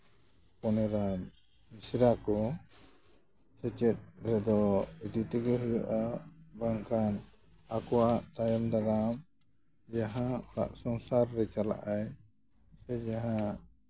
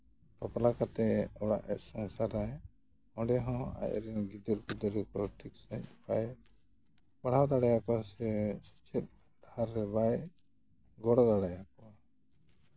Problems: background sounds at intervals